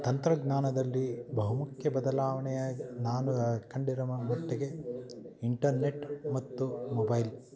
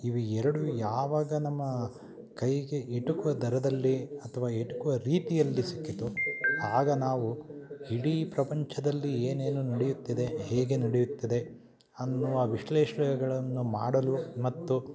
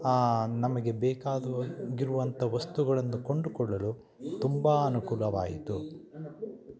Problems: background sounds at intervals